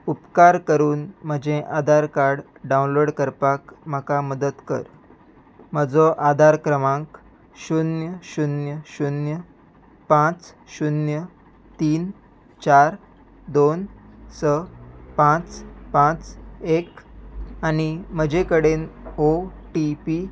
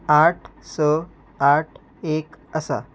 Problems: constant background noise